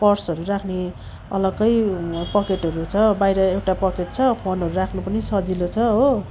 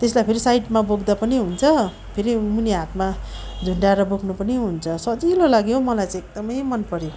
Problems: constant background noise